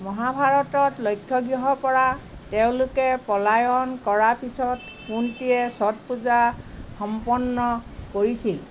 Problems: background sounds at intervals